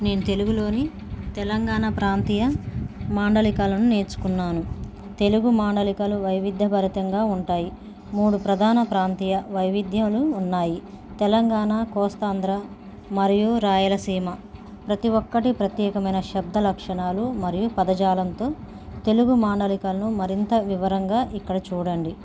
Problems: none marked